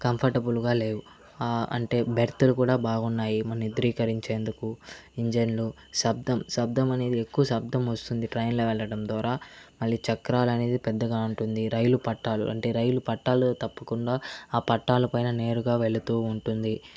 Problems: constant background noise, background conversations at intervals